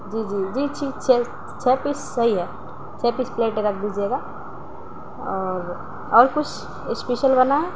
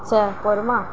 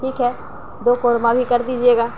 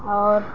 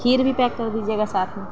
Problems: none marked